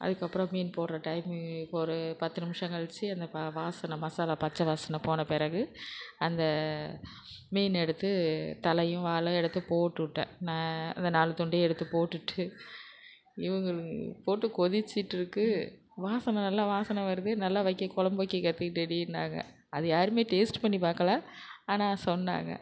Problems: constant background noise